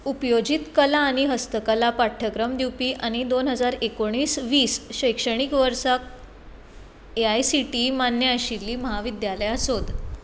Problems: constant background noise